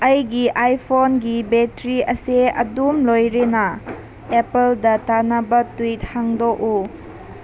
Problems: constant background noise